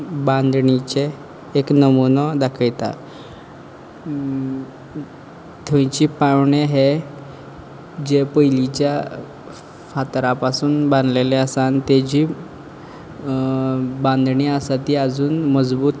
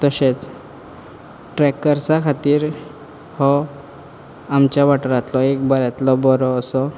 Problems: background sounds at intervals